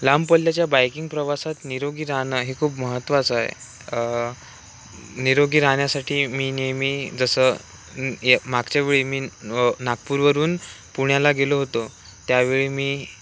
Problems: none marked